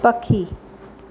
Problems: none marked